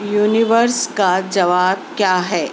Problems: constant background noise